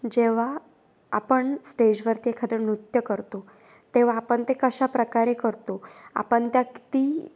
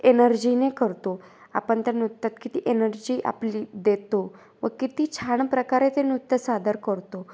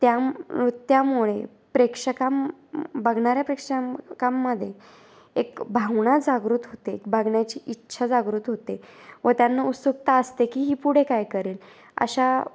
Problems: constant background noise, background conversations at intervals